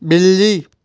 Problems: none marked